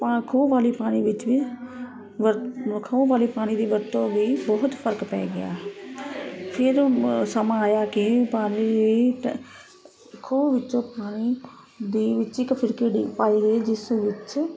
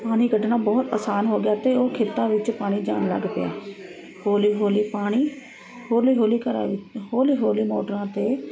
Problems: constant background noise